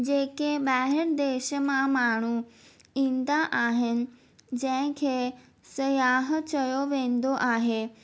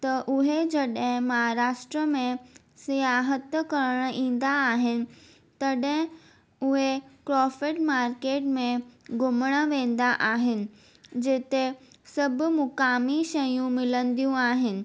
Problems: none marked